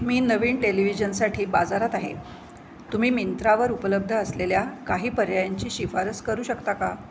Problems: background sounds at intervals